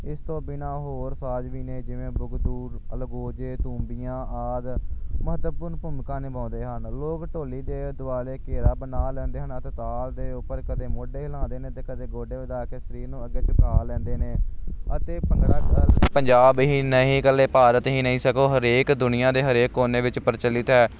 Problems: none marked